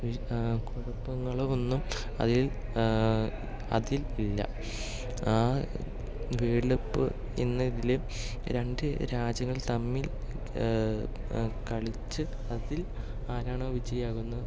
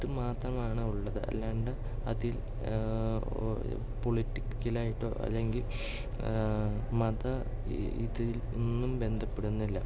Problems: low volume